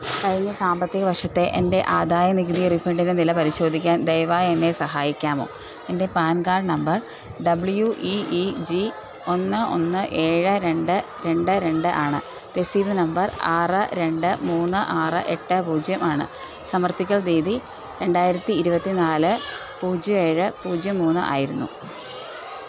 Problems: background sounds at intervals